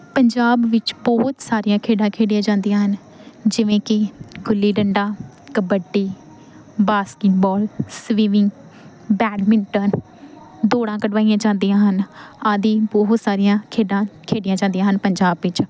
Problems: background sounds at intervals